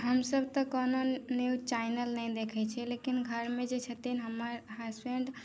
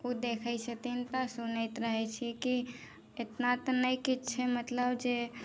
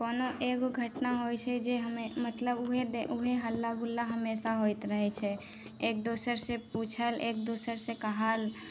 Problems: none marked